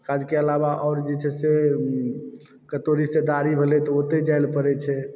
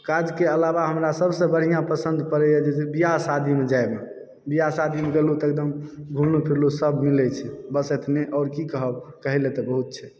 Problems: background sounds at intervals